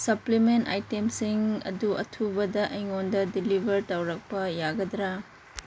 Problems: constant background noise